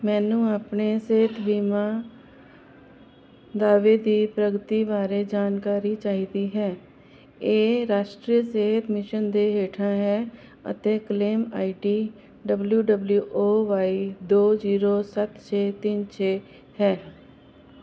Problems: constant background noise